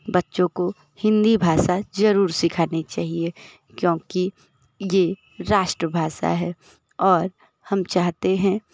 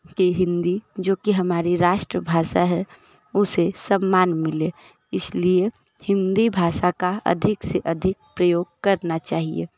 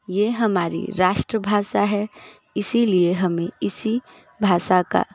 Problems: constant background noise, continuous background conversations